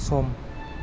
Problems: constant background noise